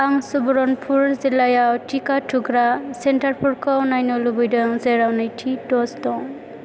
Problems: constant background noise